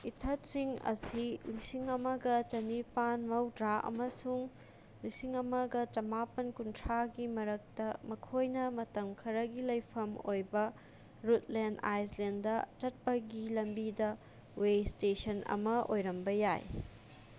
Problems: constant background noise